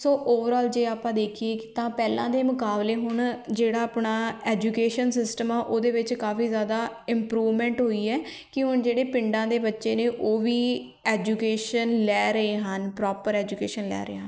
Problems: background sounds at intervals